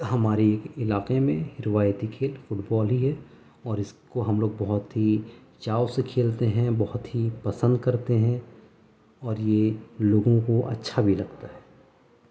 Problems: none marked